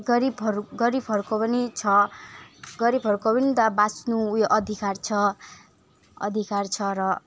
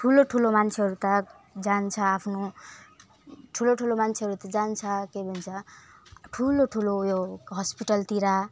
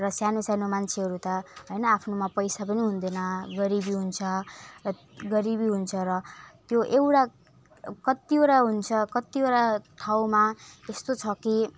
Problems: none marked